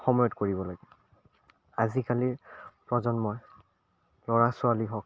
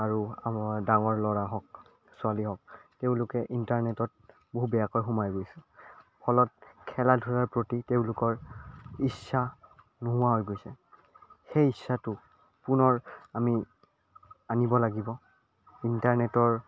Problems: none marked